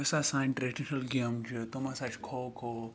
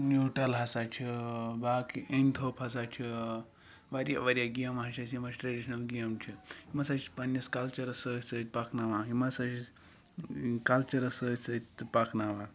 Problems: none marked